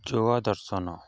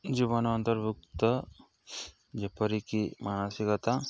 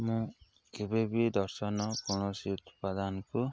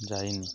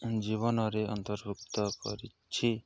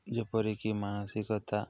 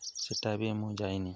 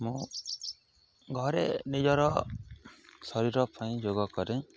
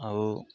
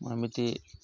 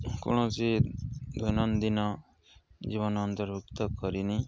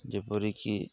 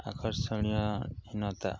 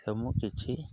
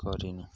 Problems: none marked